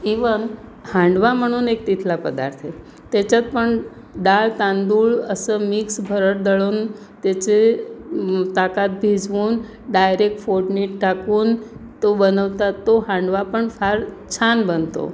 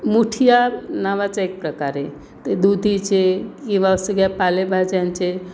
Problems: constant background noise, background conversations at intervals